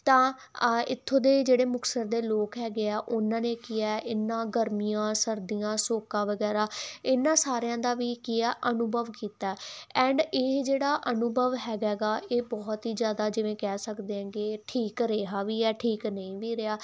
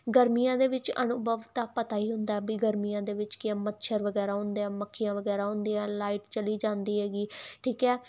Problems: none marked